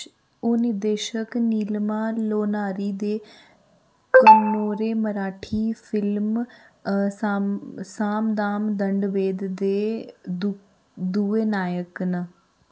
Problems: none marked